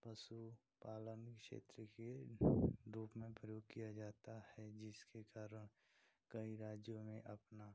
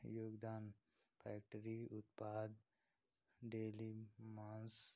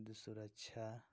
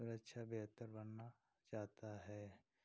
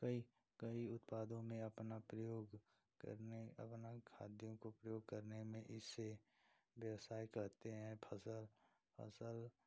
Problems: constant background noise